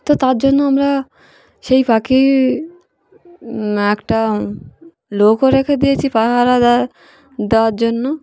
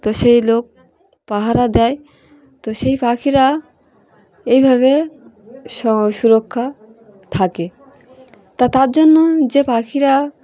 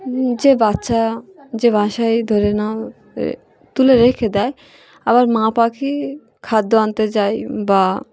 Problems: background sounds at intervals, background conversations at intervals